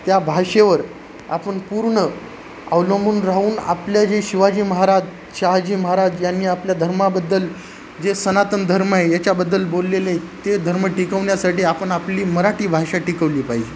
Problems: constant background noise